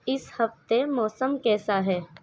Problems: background sounds at intervals